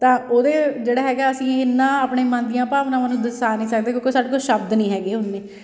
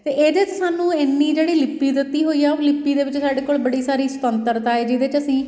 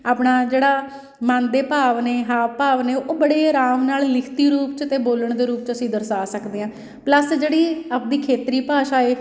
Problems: background sounds at intervals